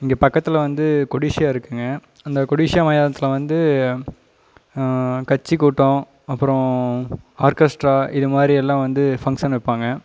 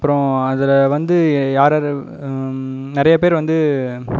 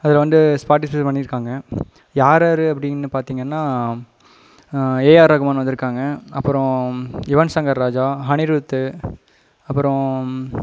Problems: background sounds at intervals